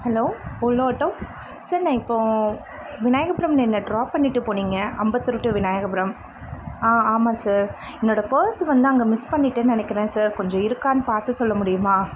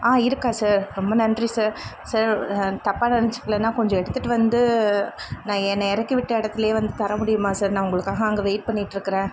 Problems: constant background noise